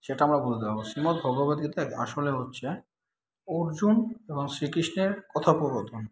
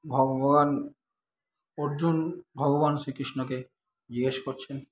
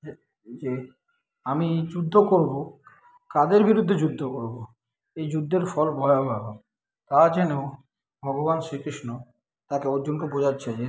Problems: constant background noise